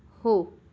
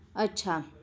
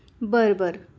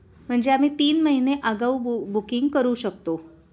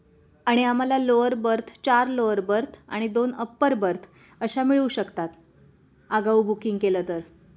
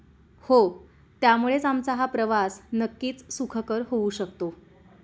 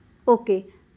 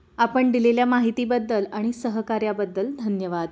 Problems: constant background noise, continuous background conversations